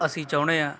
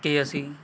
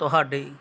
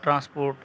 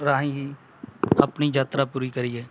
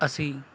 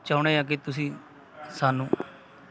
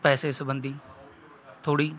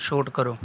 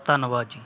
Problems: none marked